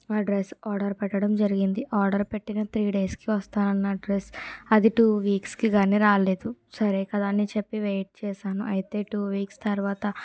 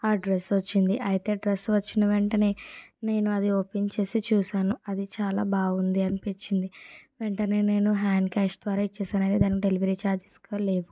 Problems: low volume